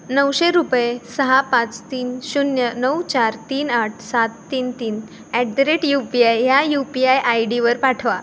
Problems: background sounds at intervals